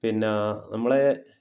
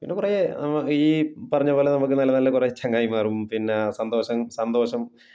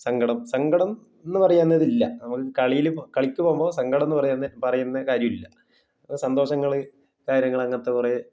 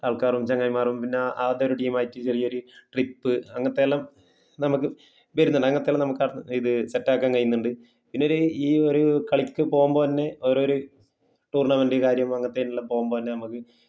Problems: low volume